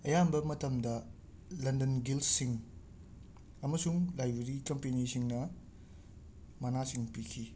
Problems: none marked